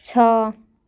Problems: none marked